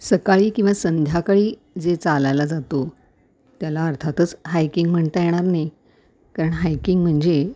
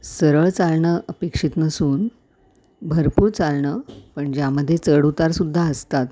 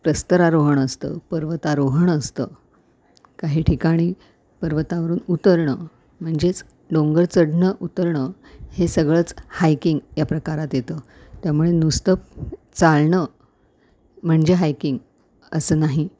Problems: none marked